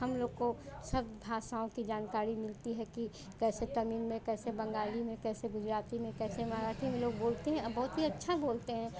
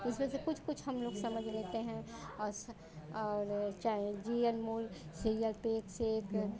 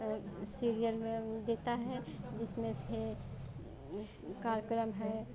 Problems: constant background noise, continuous background conversations